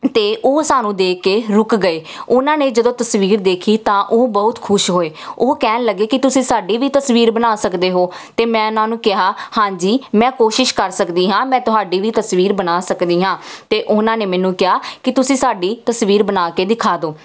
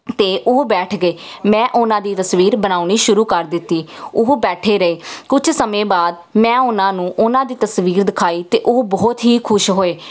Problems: none marked